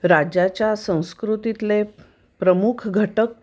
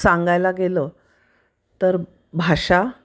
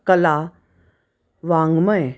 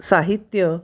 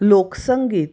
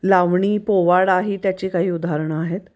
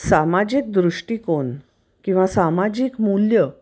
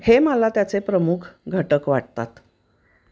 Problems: none marked